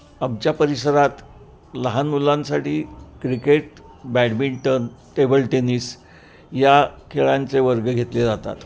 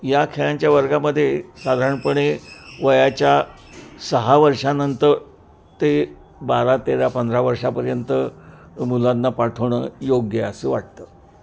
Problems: constant background noise, background conversations at intervals